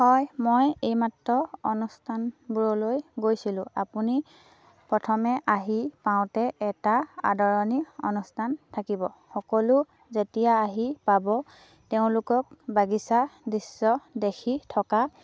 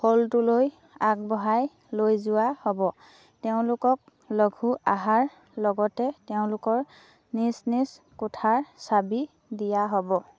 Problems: none marked